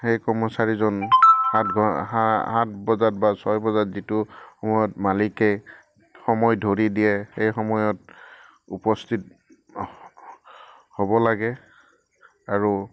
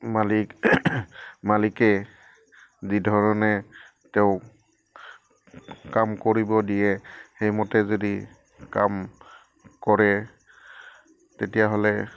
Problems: background sounds at intervals